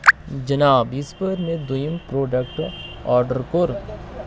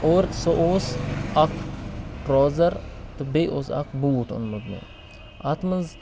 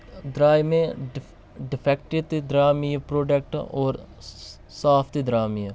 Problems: constant background noise